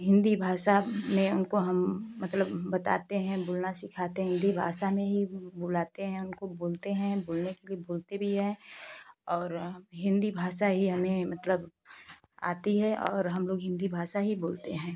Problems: constant background noise